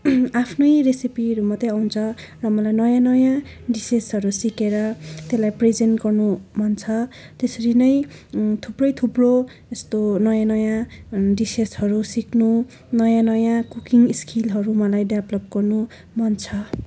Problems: constant background noise, continuous background conversations